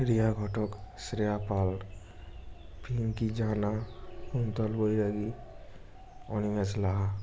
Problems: background sounds at intervals